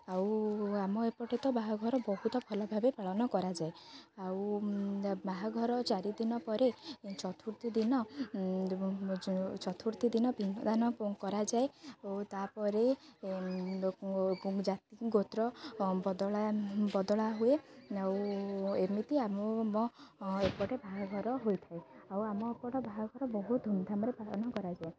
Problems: none marked